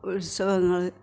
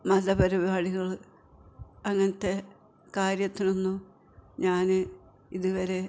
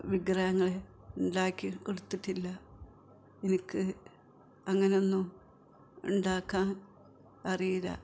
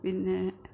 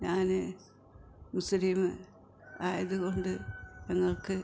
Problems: background sounds at intervals, background conversations at intervals